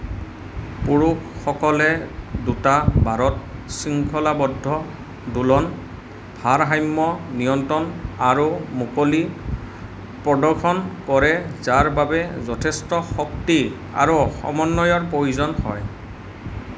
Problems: constant background noise